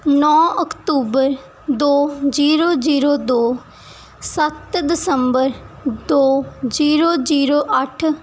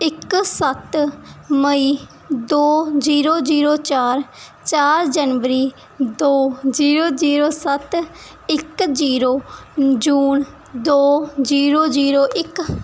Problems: background sounds at intervals